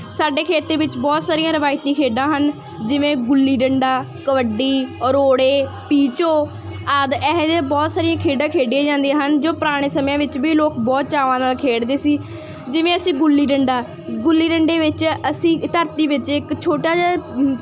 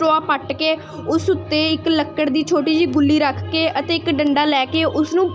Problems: none marked